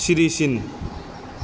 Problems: constant background noise